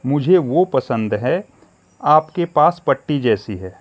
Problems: constant background noise